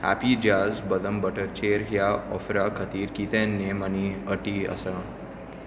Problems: none marked